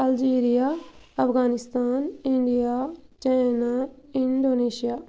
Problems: none marked